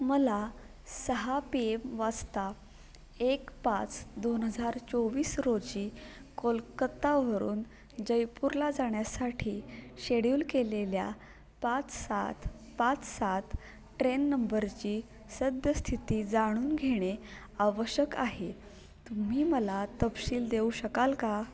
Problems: constant background noise, continuous background conversations